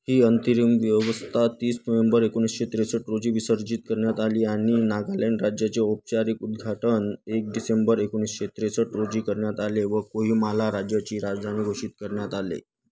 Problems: constant background noise